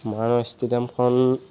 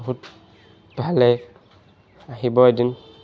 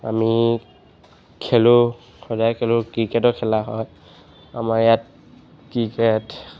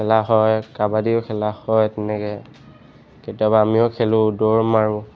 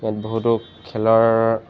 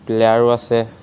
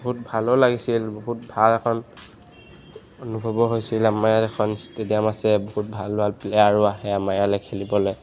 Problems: background sounds at intervals